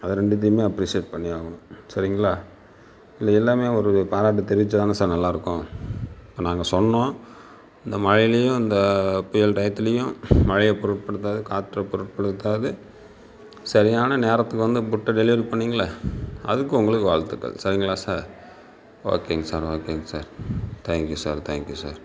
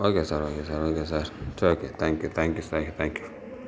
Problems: none marked